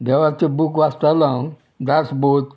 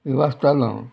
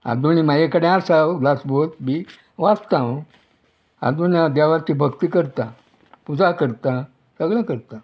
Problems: background sounds at intervals